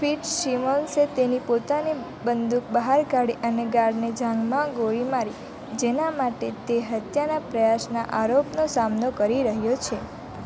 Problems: constant background noise